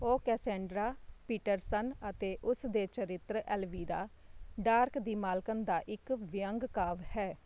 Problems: constant background noise